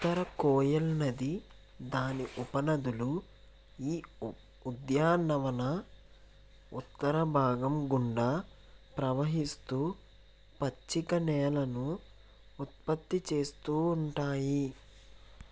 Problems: constant background noise, low volume